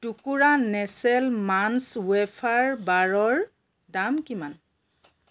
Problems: background sounds at intervals